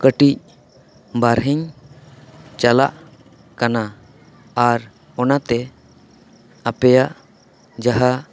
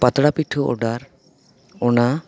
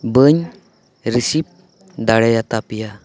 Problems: none marked